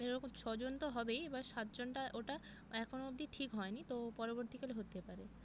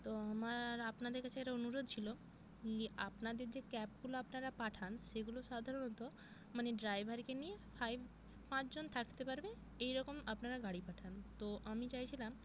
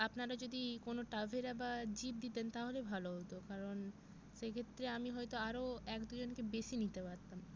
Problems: none marked